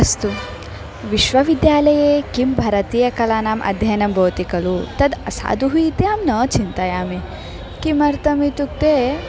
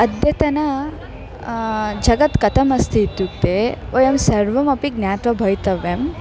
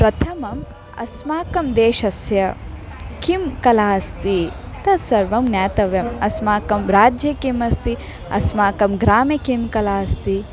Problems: background sounds at intervals, background conversations at intervals